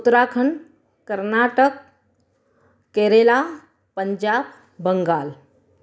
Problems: echo